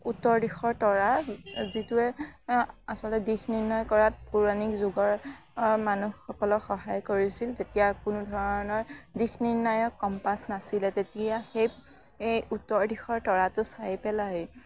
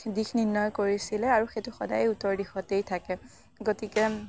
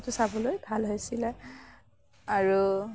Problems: background sounds at intervals, background conversations at intervals